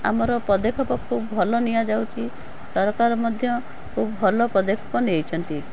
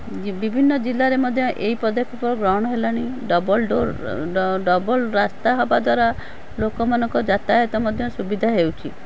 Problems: background sounds at intervals